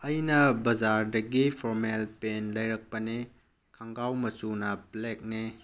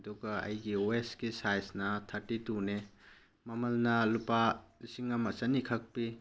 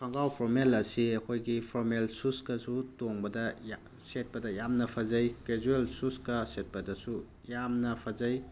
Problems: background sounds at intervals